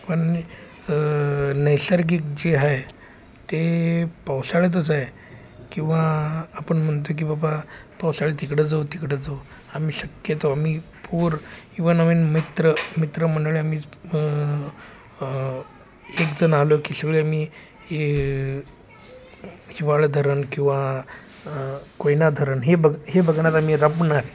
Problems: constant background noise, background conversations at intervals